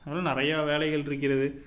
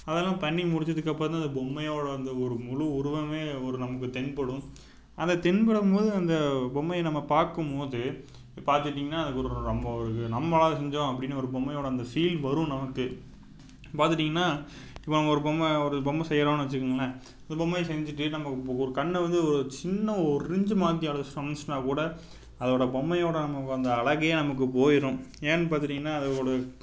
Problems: none marked